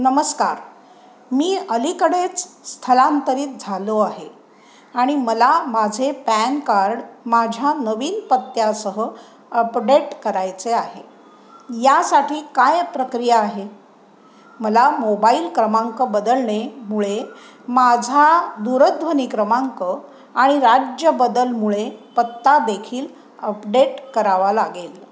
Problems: constant background noise